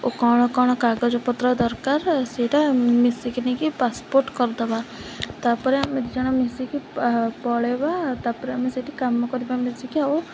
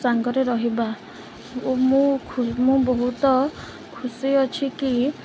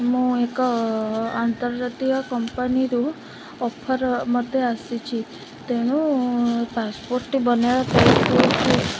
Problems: constant background noise